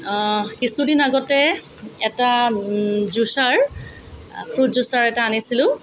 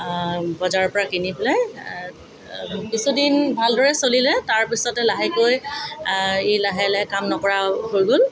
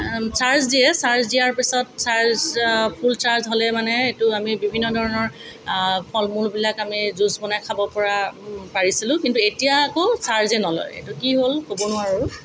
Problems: constant background noise